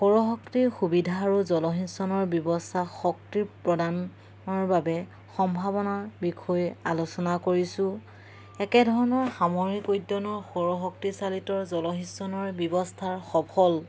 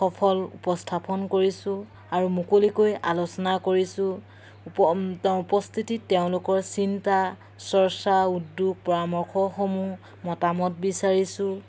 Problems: background sounds at intervals